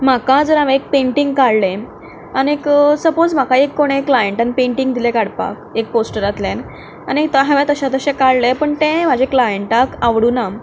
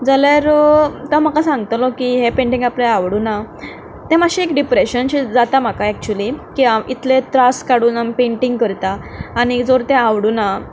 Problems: background sounds at intervals